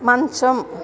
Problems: constant background noise